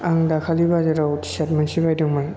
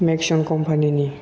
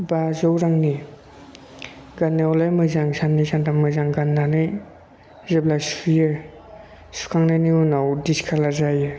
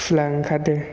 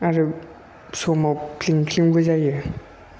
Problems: constant background noise